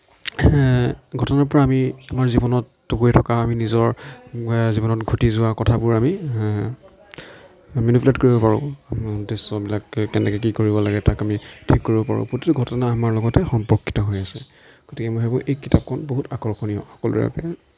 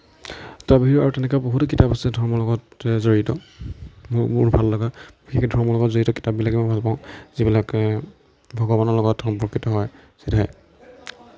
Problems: none marked